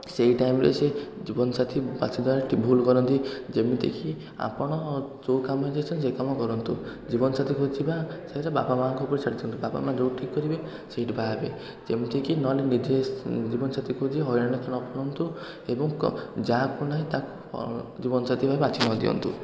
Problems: continuous background conversations